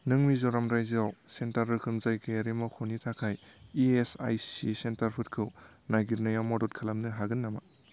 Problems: low volume